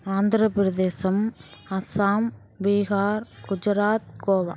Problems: background sounds at intervals